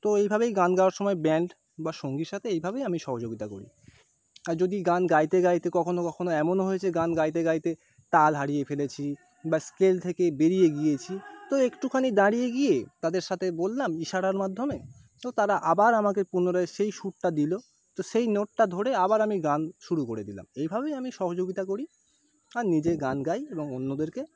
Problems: background sounds at intervals